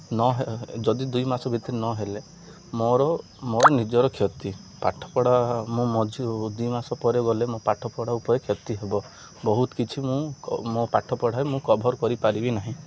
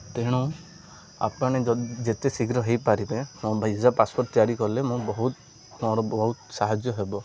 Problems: none marked